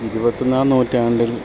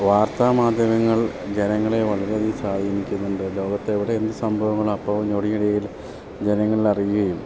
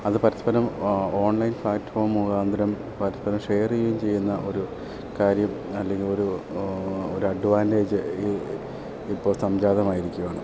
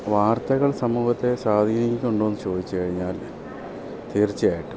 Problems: constant background noise, low volume